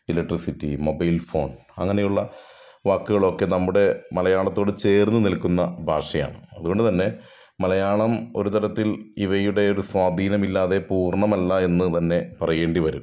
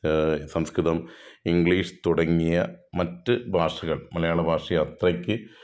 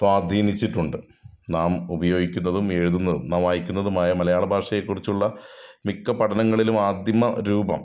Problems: none marked